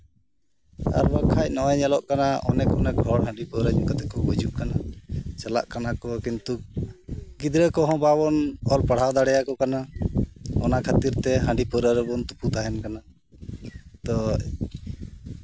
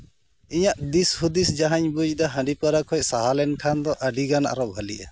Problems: background sounds at intervals